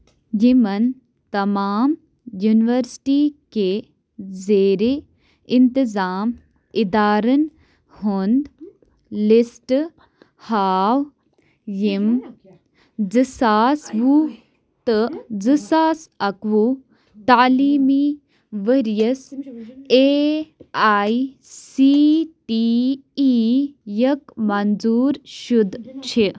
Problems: background sounds at intervals